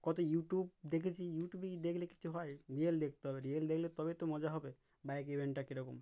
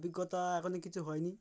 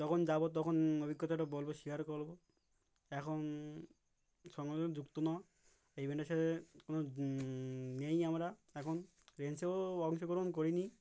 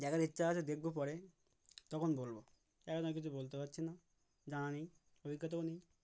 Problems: background sounds at intervals